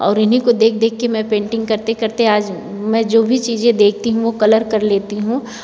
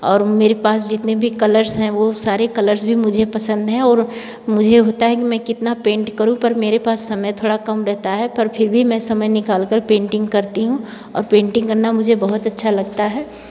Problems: background sounds at intervals